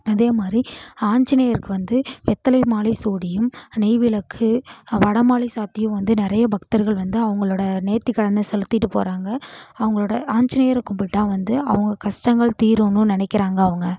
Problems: constant background noise